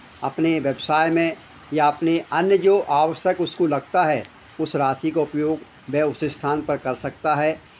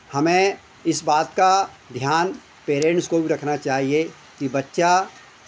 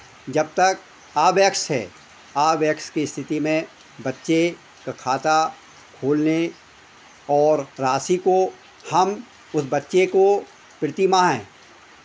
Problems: none marked